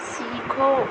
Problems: constant background noise